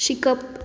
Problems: none marked